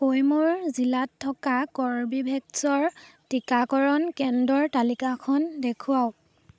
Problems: background sounds at intervals